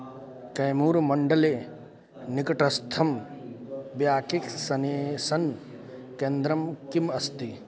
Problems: constant background noise